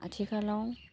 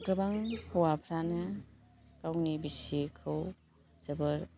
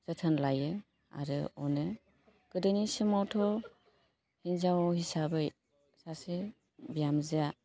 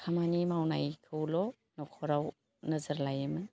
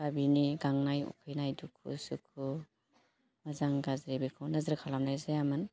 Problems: constant background noise